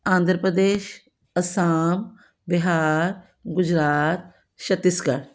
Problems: none marked